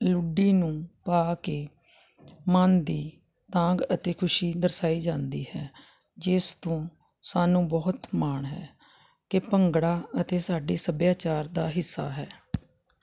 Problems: constant background noise